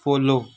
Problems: none marked